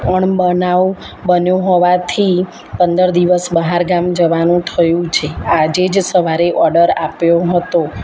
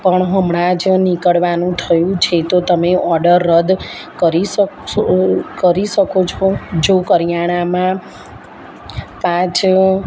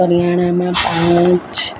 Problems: none marked